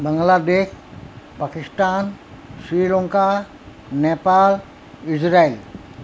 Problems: constant background noise